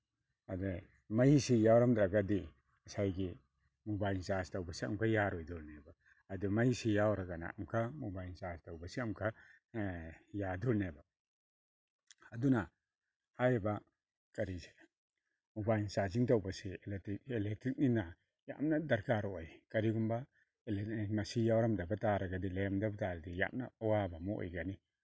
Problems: none marked